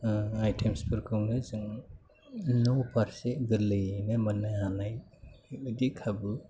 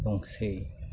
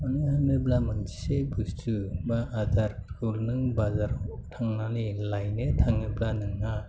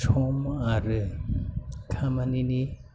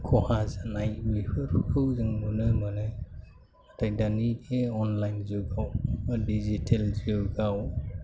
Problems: none marked